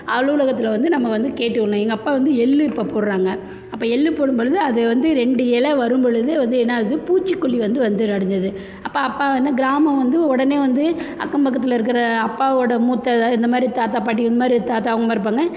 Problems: low volume